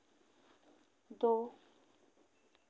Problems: constant background noise